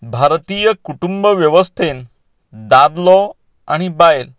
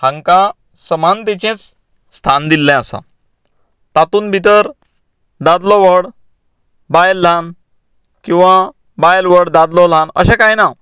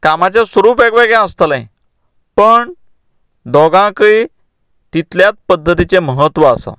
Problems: none marked